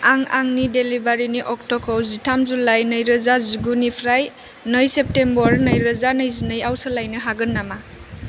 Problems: constant background noise